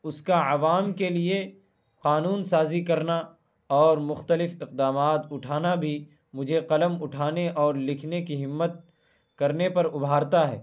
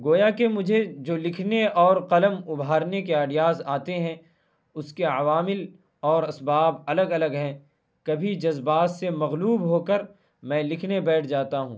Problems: constant background noise